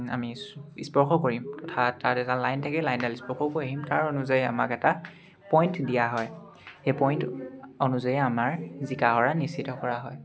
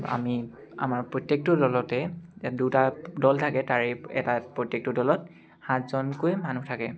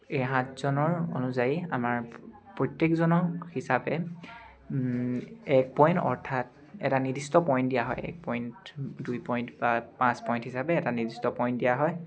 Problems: none marked